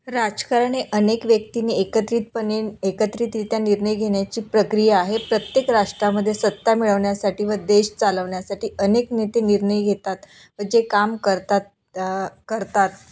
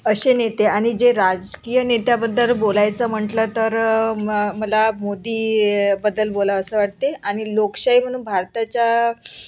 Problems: none marked